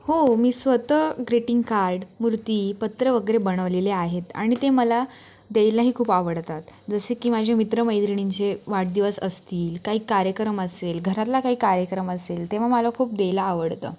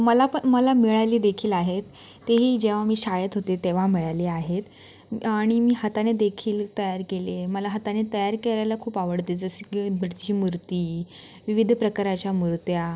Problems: background sounds at intervals